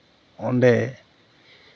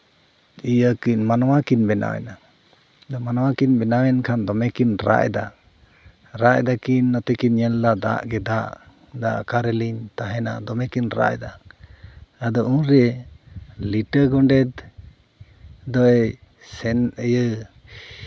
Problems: none marked